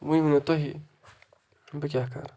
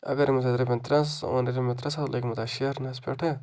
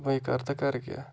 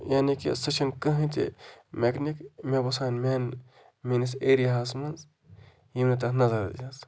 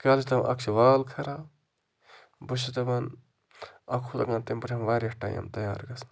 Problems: constant background noise